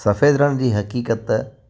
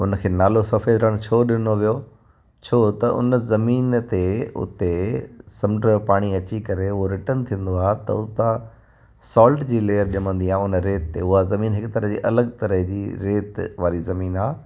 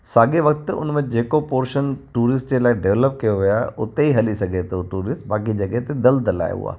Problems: constant background noise, echo